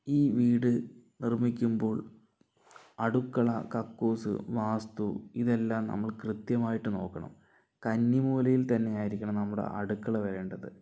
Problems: none marked